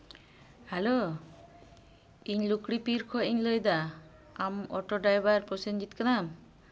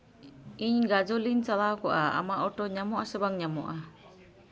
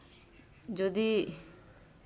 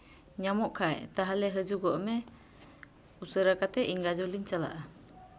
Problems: background sounds at intervals